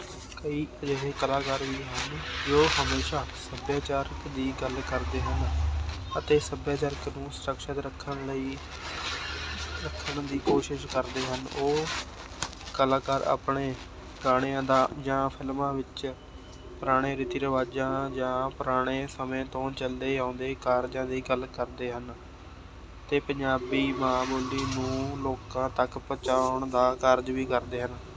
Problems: constant background noise, background conversations at intervals